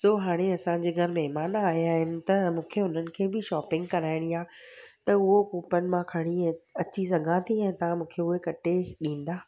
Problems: background sounds at intervals